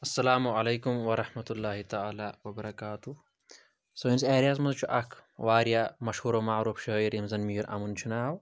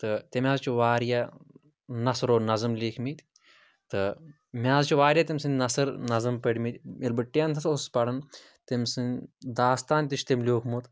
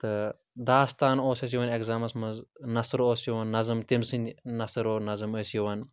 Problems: none marked